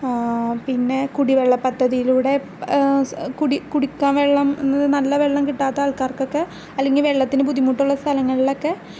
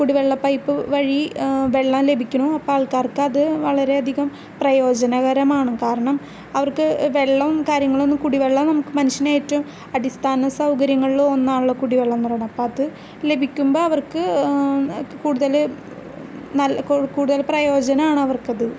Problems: none marked